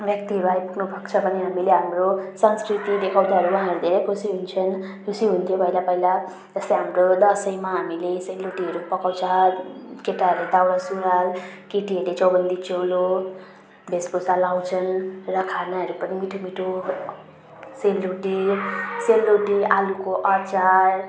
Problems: background sounds at intervals